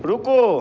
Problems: none marked